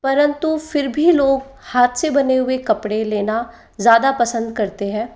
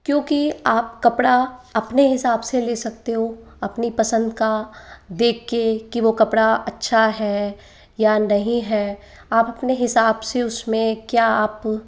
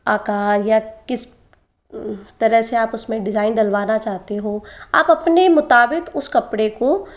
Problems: background sounds at intervals